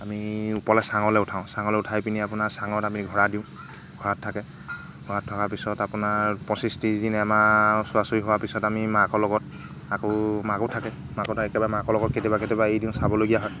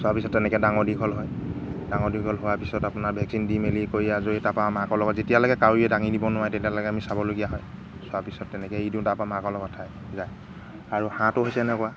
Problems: background sounds at intervals